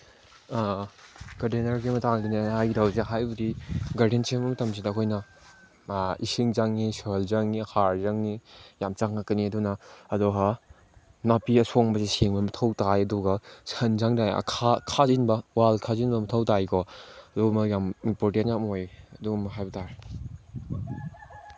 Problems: background sounds at intervals